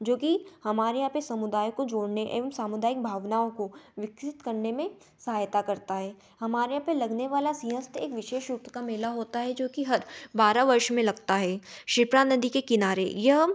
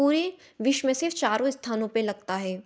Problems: none marked